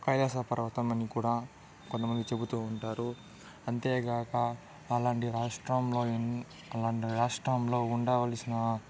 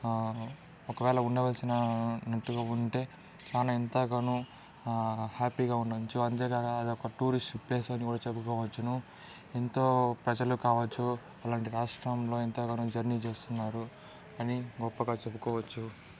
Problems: background conversations at intervals, low volume